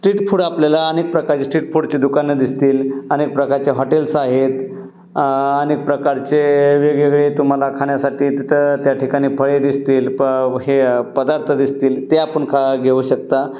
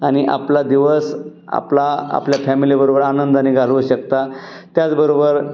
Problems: background sounds at intervals